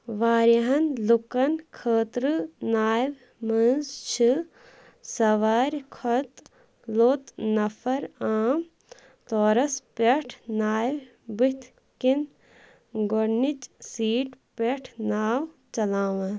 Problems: background sounds at intervals